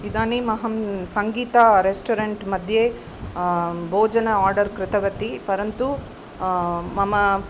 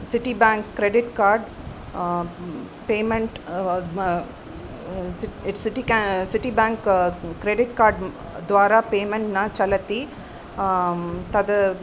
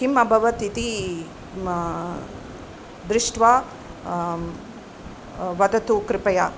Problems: constant background noise